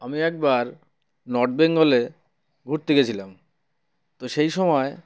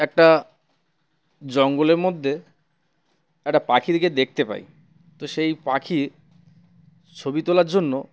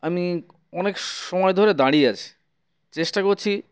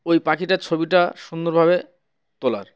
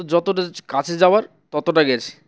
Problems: constant background noise, background conversations at intervals